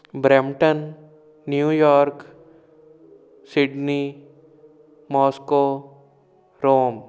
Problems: background sounds at intervals